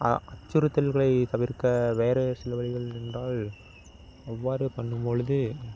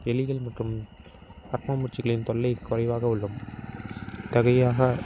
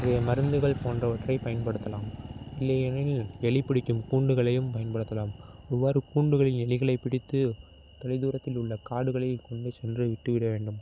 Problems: constant background noise